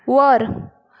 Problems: none marked